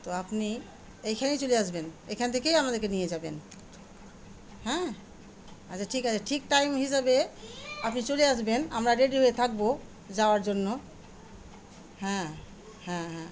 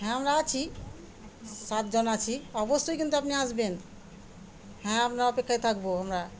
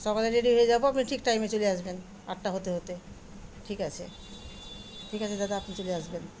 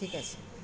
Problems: constant background noise, background conversations at intervals